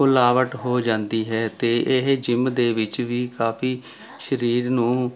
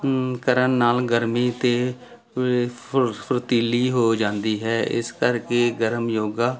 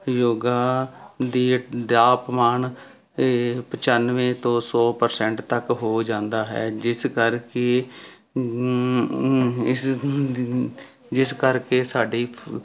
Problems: constant background noise